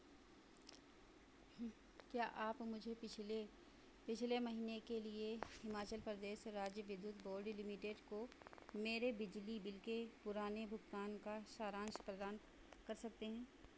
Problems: constant background noise